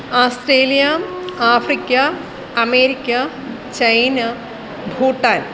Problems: constant background noise